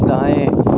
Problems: background sounds at intervals